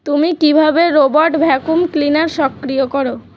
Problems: constant background noise